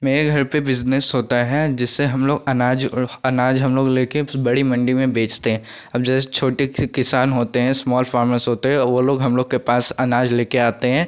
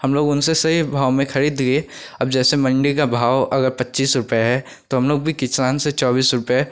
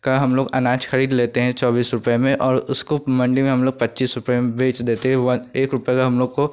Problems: constant background noise